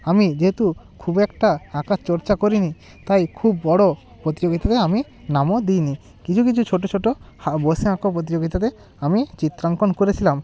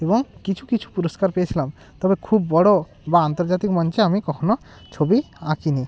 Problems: none marked